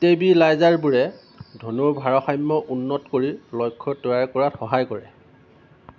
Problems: constant background noise